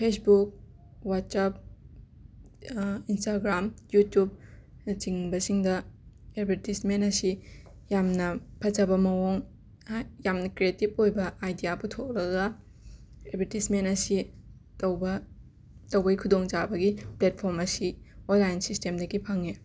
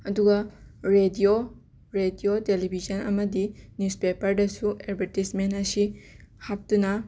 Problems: background sounds at intervals, continuous background conversations